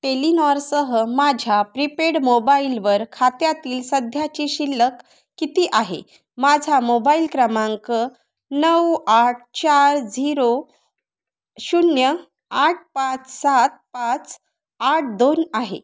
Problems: none marked